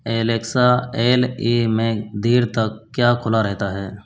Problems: constant background noise